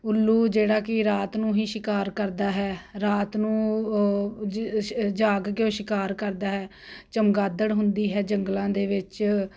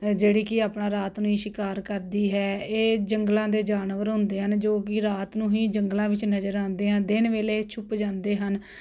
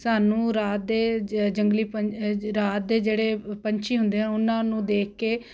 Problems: constant background noise